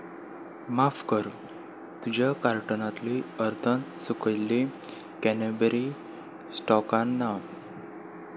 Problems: constant background noise